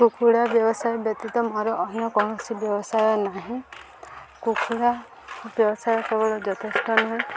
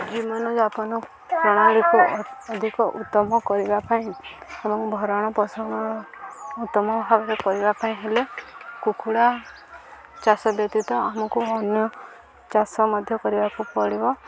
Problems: constant background noise